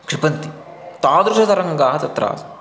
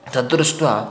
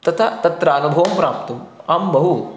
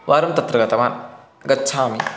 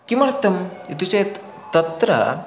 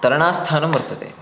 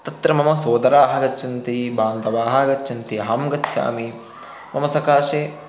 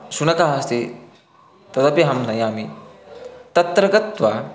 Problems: constant background noise, continuous background conversations